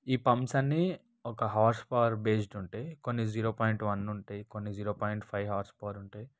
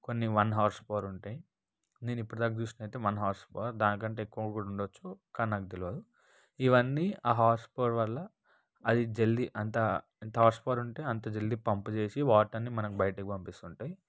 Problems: none marked